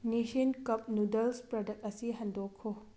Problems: none marked